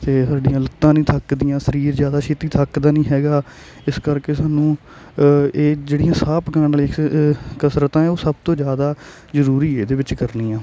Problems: none marked